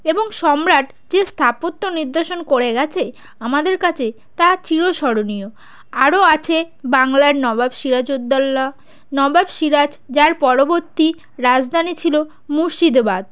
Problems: background sounds at intervals